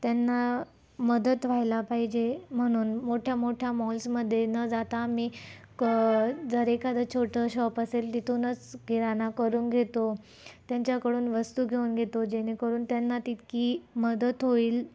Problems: constant background noise, low volume